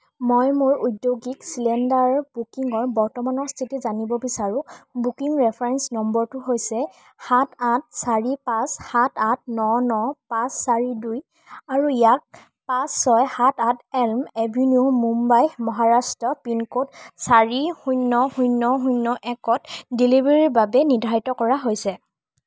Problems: none marked